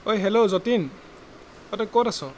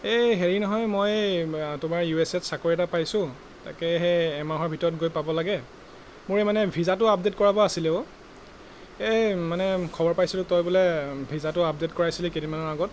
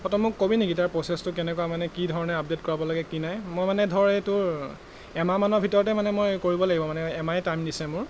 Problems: constant background noise